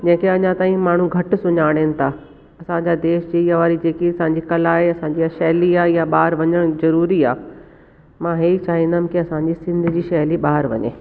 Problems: constant background noise